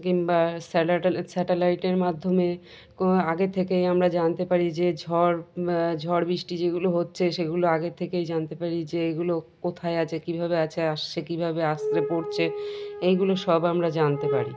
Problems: continuous background conversations